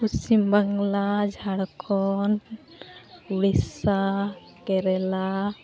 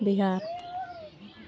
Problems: constant background noise, continuous background conversations